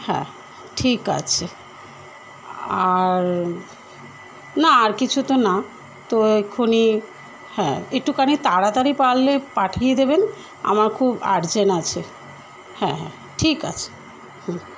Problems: none marked